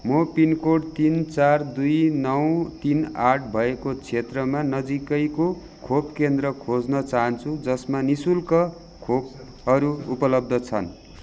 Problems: none marked